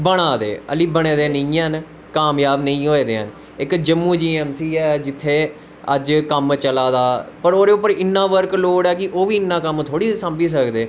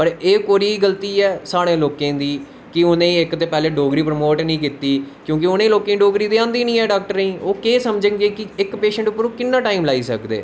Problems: constant background noise